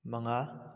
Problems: low volume